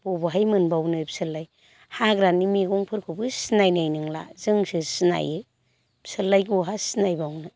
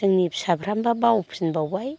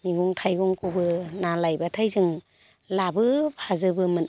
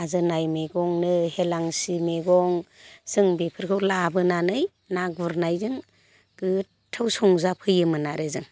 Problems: constant background noise